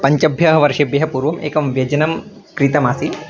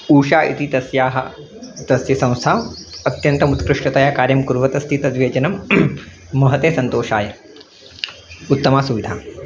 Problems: background sounds at intervals